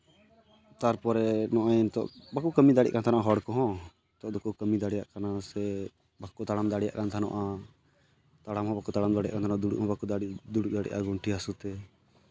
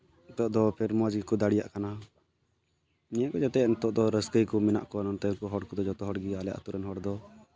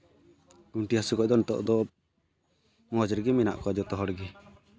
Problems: background conversations at intervals